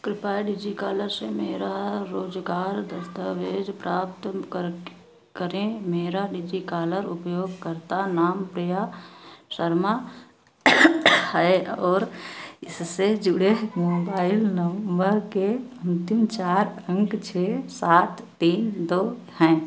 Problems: none marked